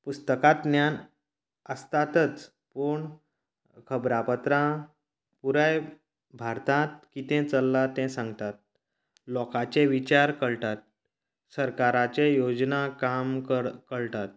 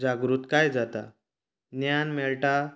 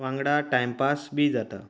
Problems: constant background noise